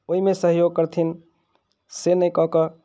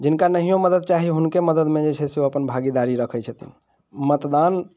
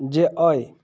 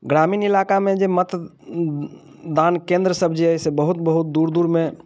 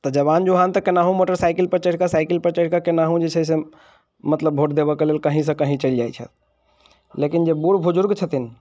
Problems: none marked